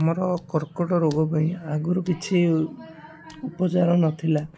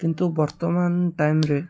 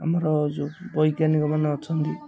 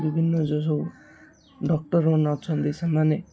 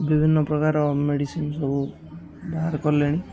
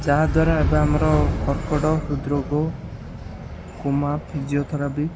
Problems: constant background noise, continuous background conversations